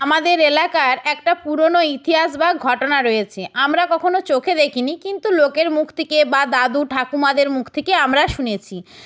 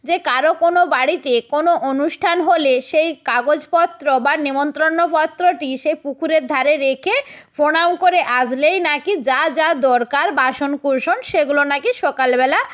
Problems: background sounds at intervals